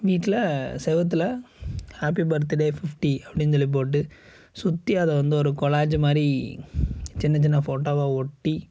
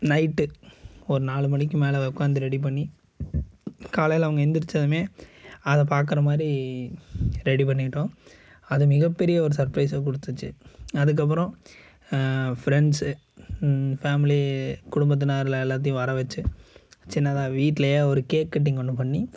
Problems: none marked